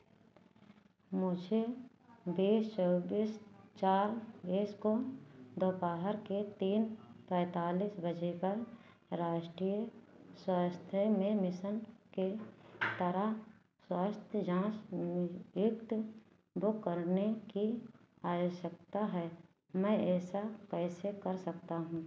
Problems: none marked